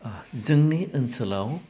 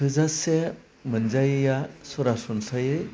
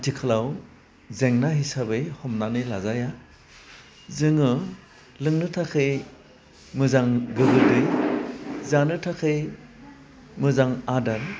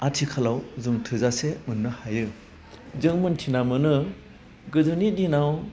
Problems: constant background noise